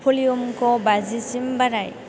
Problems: none marked